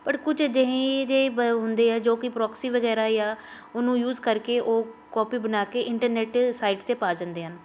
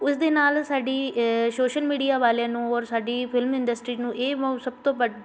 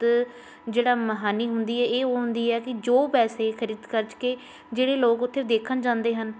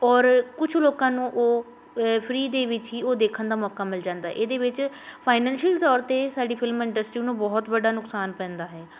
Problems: constant background noise